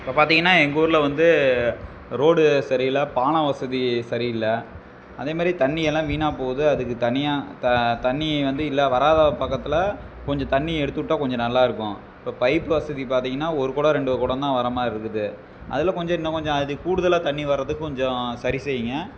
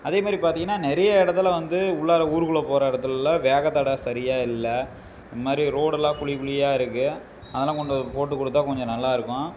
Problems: background sounds at intervals